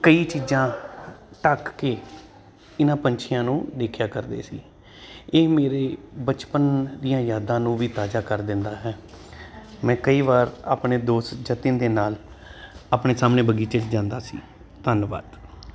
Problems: constant background noise